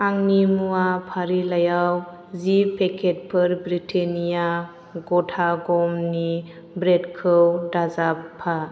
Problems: constant background noise